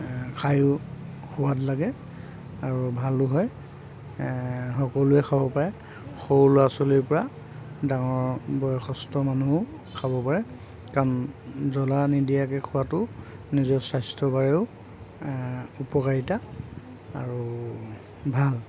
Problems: constant background noise